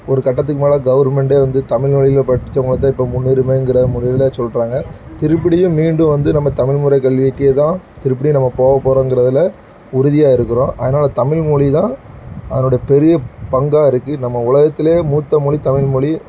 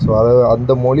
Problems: none marked